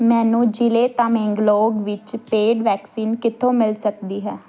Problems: background conversations at intervals